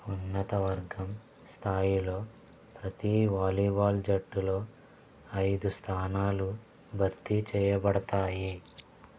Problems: background sounds at intervals, low volume